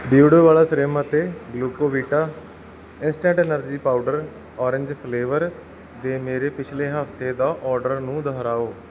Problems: background sounds at intervals